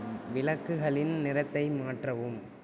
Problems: constant background noise, low volume